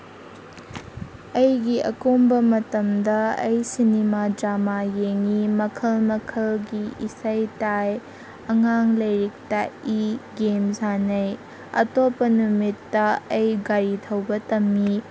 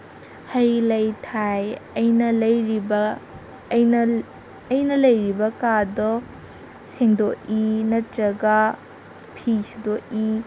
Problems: constant background noise